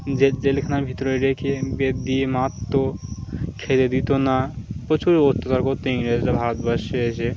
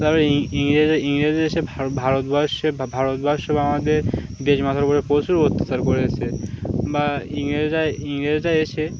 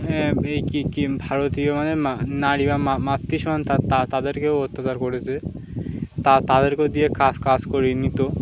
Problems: constant background noise